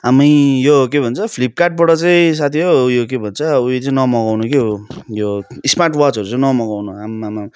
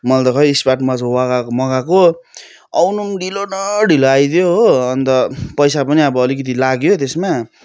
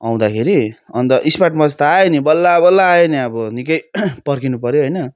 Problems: none marked